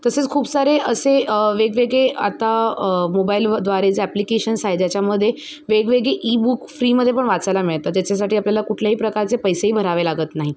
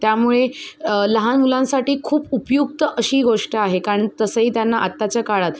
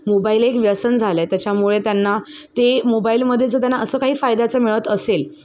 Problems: constant background noise